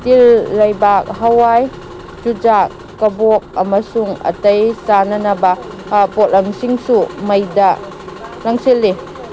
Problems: background sounds at intervals